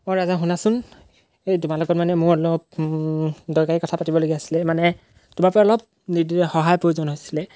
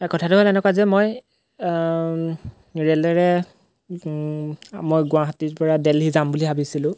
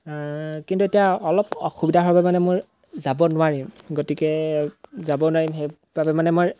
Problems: background sounds at intervals